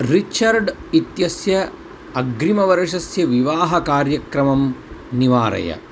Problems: constant background noise